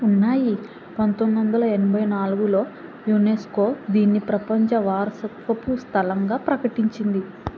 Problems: constant background noise